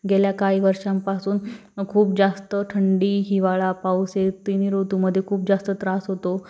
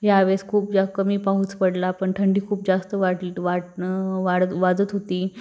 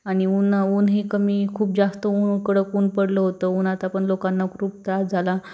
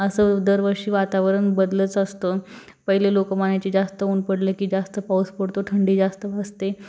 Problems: background sounds at intervals